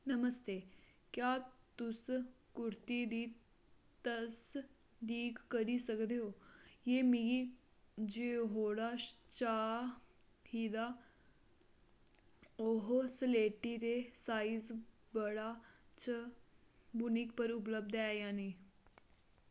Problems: none marked